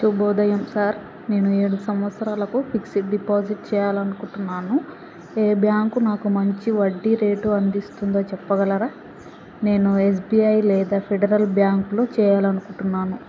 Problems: constant background noise